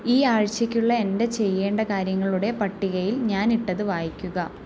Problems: low volume